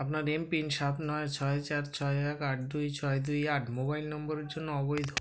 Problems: background conversations at intervals